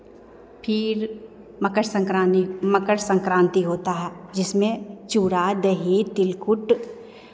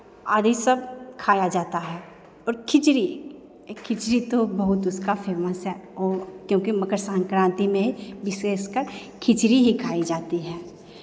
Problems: constant background noise, echo